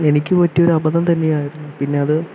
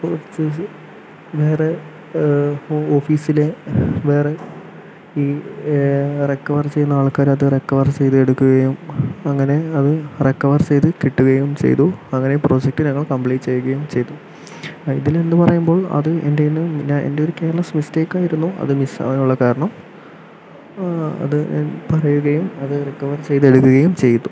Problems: constant background noise, low volume